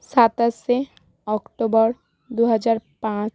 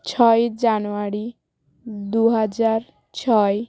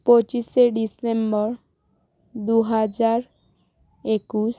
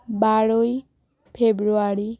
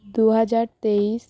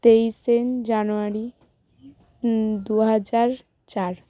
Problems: constant background noise, background conversations at intervals